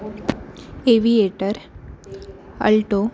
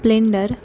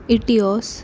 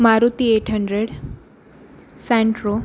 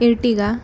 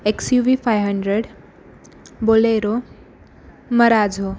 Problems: constant background noise, background conversations at intervals